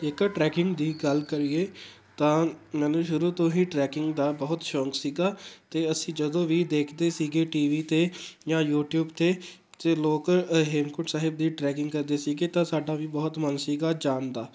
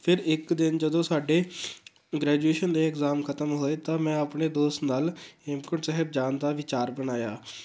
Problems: background sounds at intervals